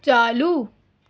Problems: constant background noise